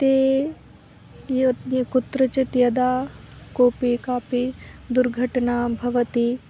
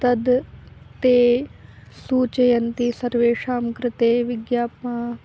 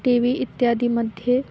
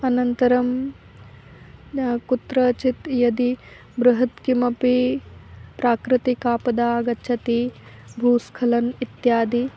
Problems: background sounds at intervals